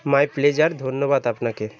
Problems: background sounds at intervals, continuous background conversations